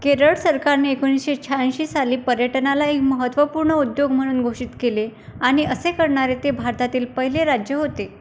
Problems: constant background noise